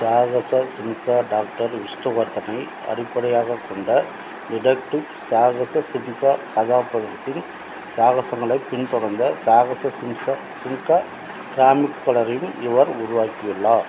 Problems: constant background noise, background conversations at intervals